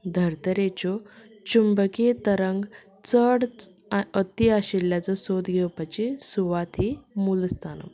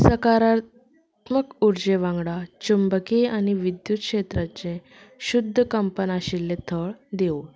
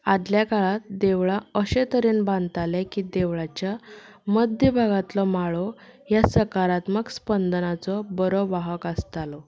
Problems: background sounds at intervals